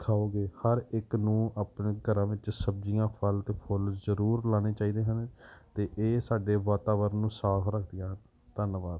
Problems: background sounds at intervals